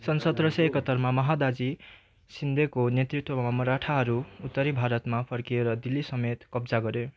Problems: constant background noise, continuous background conversations